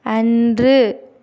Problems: constant background noise